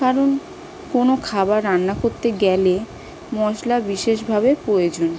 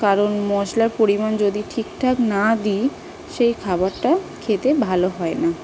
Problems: constant background noise